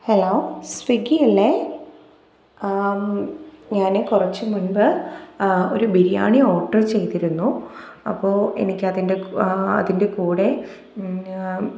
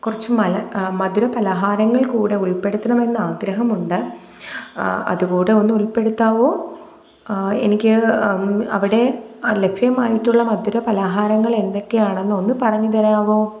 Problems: background sounds at intervals